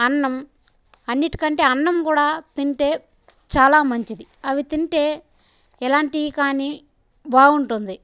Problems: background sounds at intervals